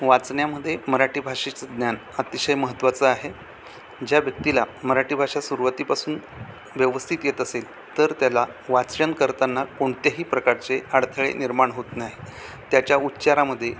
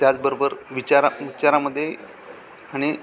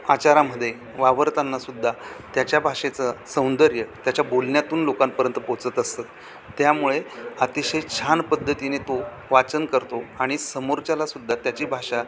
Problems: constant background noise, background conversations at intervals